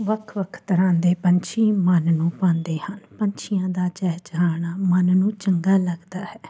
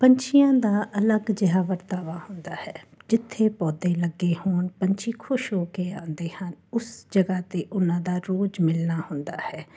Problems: constant background noise